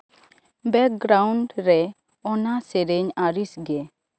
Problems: background sounds at intervals